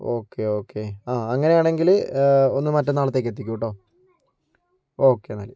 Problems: none marked